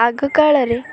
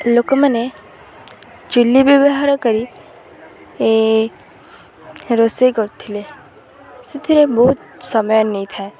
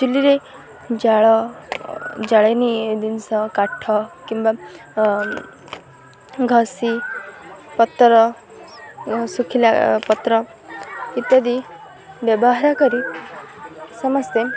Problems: constant background noise, continuous background conversations